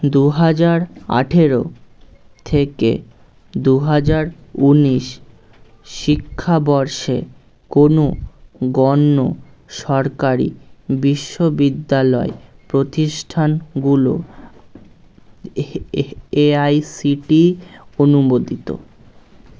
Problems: none marked